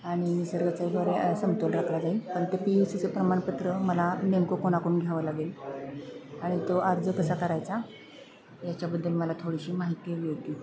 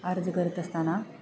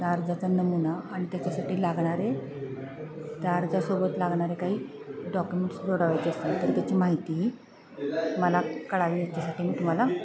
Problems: constant background noise, continuous background conversations